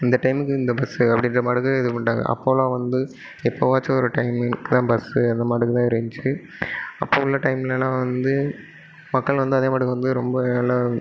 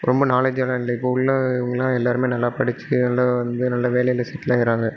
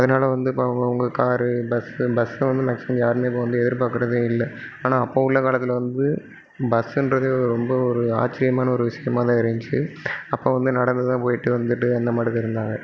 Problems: none marked